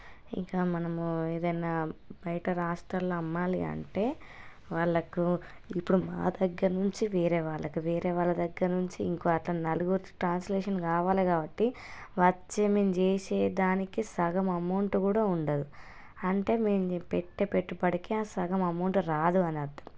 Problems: low volume